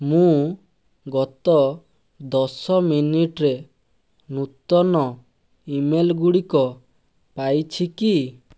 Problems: none marked